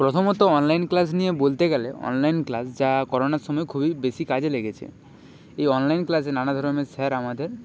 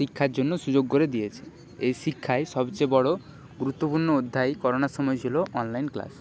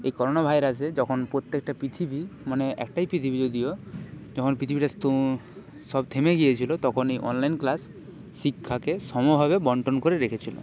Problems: constant background noise, background conversations at intervals